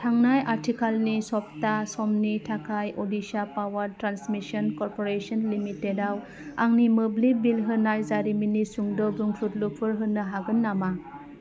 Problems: constant background noise